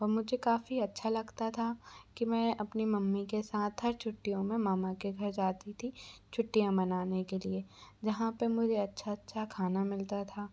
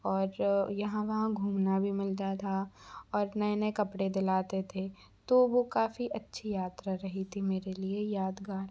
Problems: background sounds at intervals